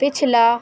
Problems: constant background noise